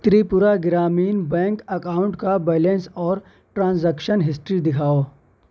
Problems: none marked